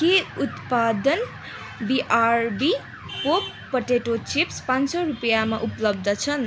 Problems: constant background noise, background conversations at intervals